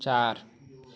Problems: none marked